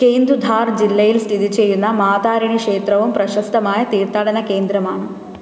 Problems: constant background noise